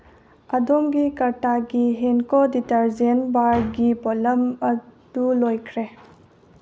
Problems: background sounds at intervals, low volume